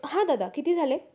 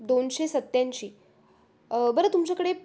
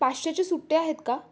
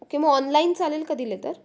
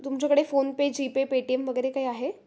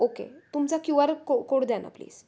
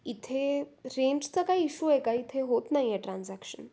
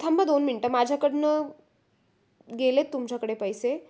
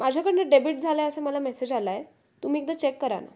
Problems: none marked